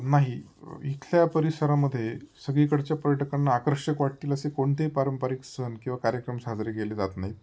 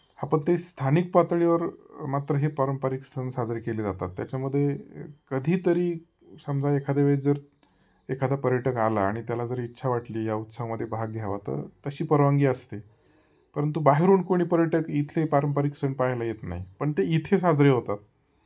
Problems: none marked